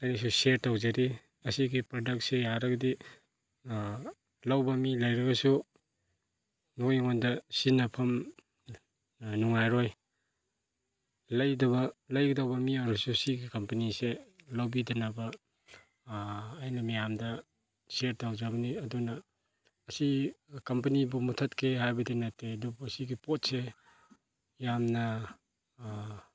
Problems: none marked